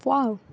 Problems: none marked